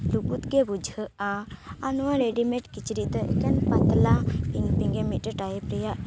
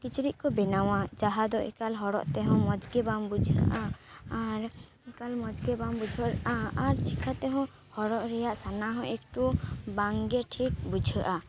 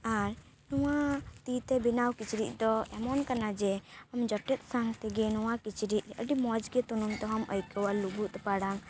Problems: constant background noise